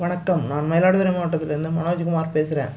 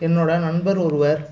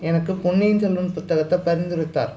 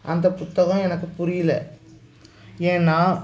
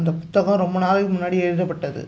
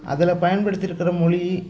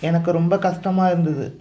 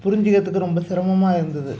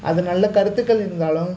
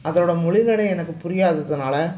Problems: background sounds at intervals